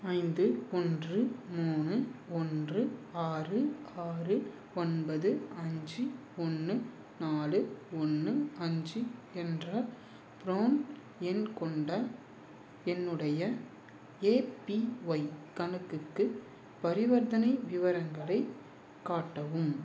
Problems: none marked